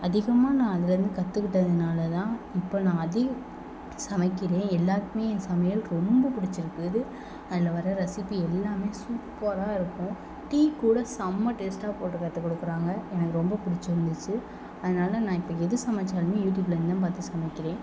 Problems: none marked